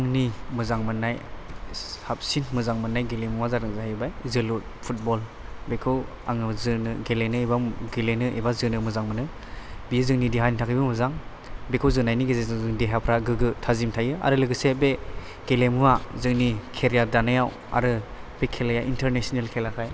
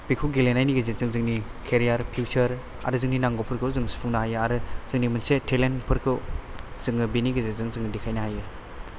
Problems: constant background noise